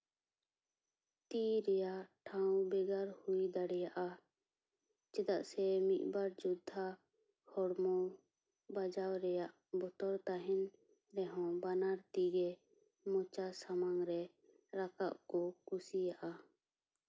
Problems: none marked